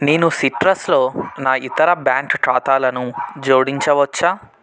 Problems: background sounds at intervals